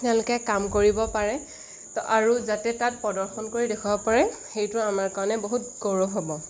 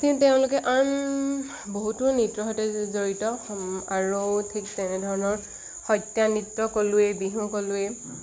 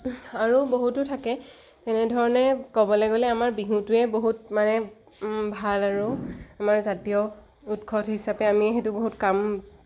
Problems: constant background noise